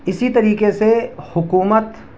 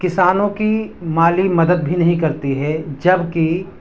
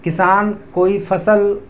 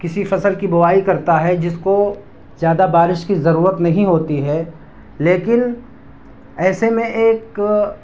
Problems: constant background noise